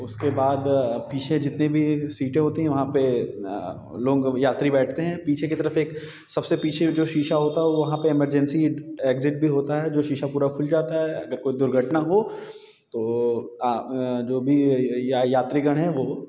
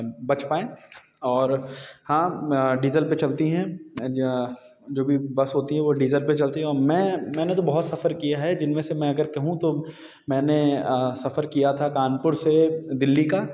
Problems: none marked